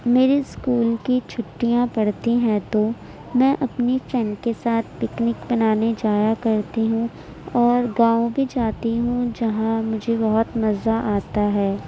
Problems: none marked